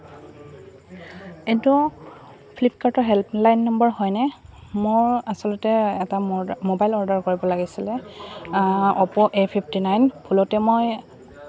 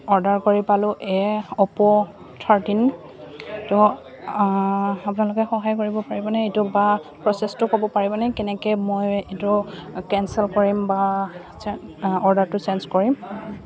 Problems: constant background noise, continuous background conversations